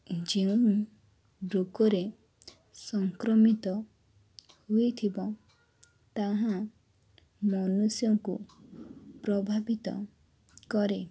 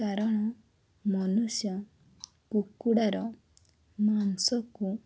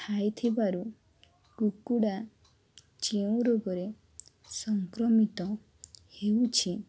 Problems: none marked